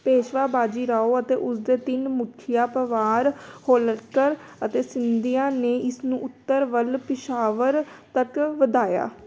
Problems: background sounds at intervals